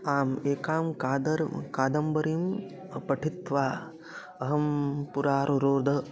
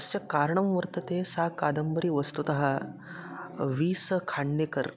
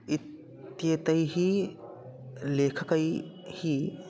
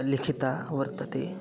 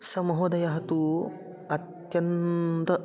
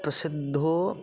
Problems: constant background noise, continuous background conversations